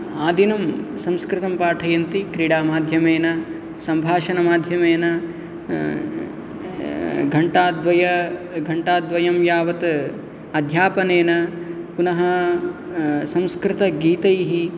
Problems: none marked